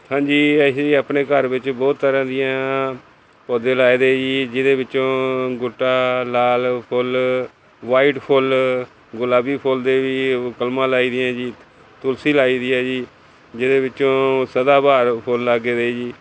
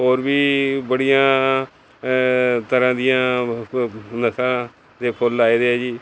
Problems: constant background noise